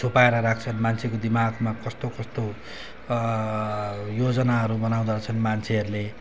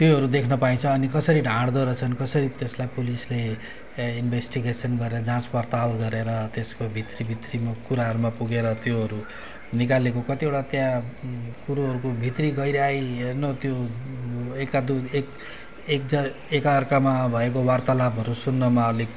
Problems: background sounds at intervals